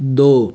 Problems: constant background noise